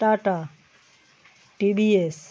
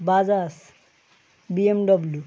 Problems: none marked